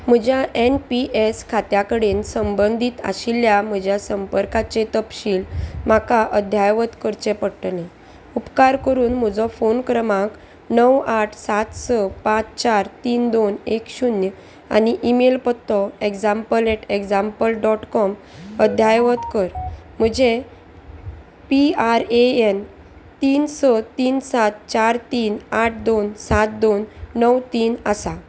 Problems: constant background noise